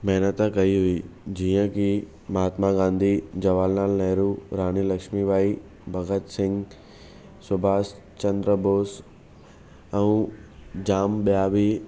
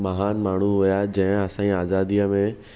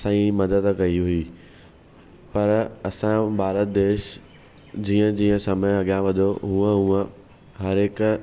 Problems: none marked